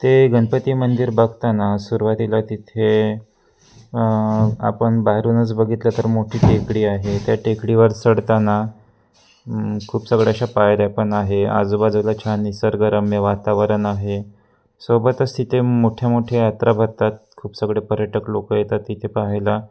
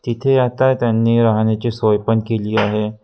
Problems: constant background noise, continuous background conversations